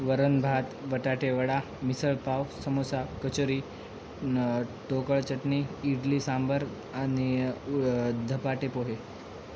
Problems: constant background noise, background conversations at intervals